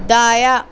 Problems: none marked